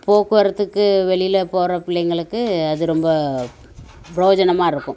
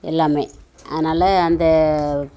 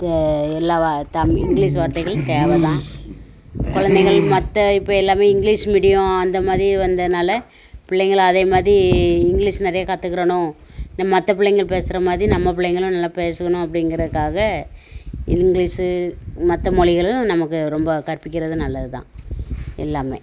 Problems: constant background noise